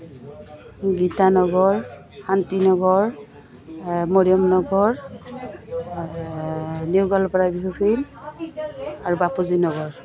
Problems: none marked